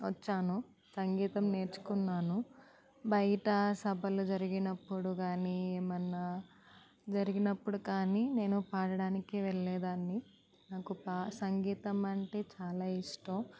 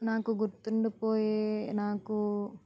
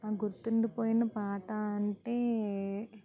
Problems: none marked